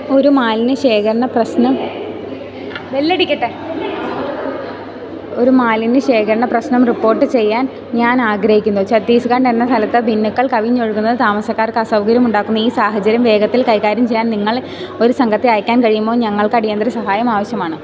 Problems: background conversations at intervals